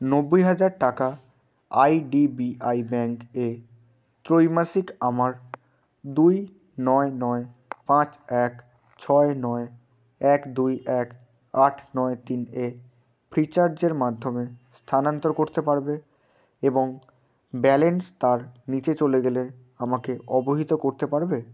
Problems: constant background noise